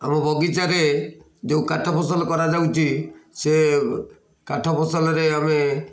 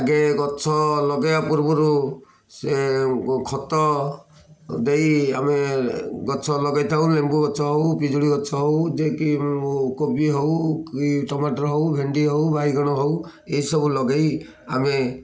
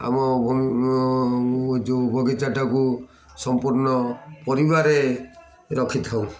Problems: constant background noise, continuous background conversations